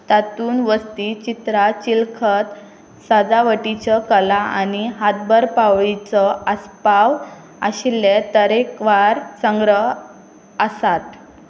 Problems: none marked